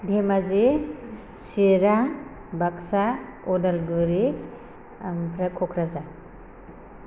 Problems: constant background noise